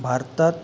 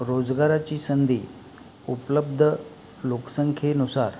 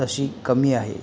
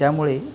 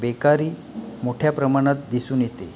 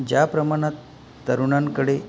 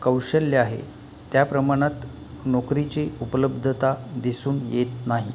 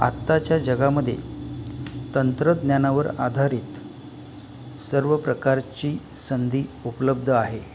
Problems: background sounds at intervals